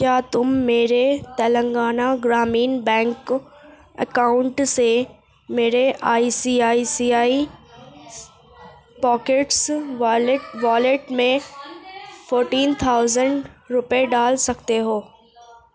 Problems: background conversations at intervals